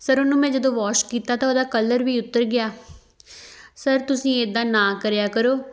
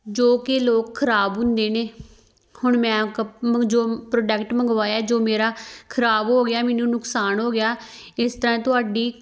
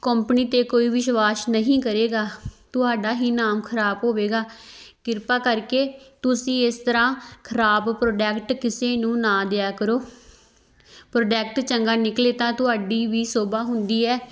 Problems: background sounds at intervals